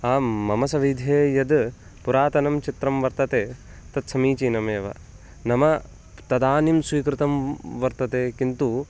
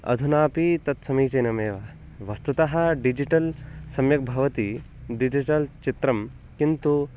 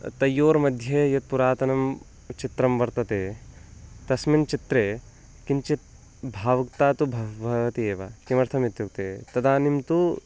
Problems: constant background noise